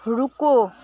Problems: constant background noise, background conversations at intervals